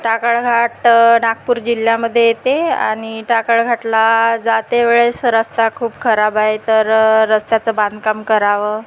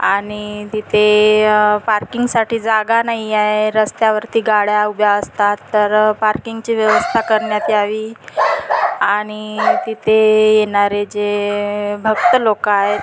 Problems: constant background noise, background conversations at intervals